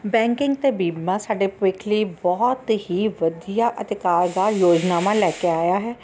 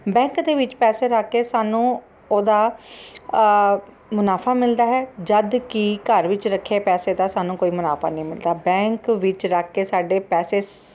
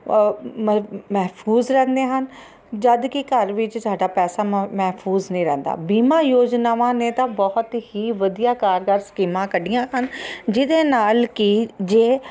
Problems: constant background noise